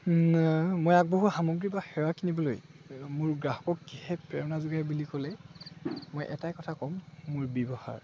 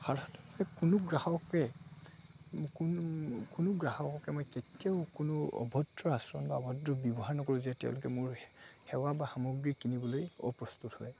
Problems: constant background noise, background conversations at intervals